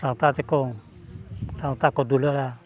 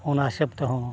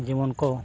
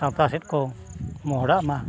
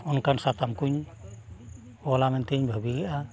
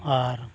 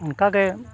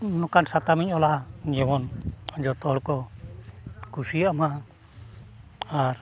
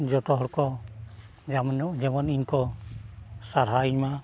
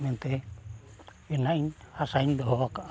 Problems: background sounds at intervals, continuous background conversations